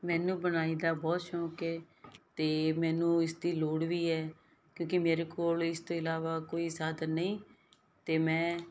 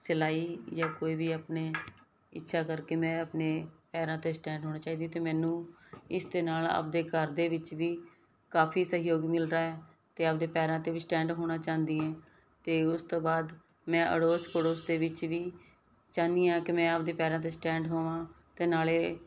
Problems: background sounds at intervals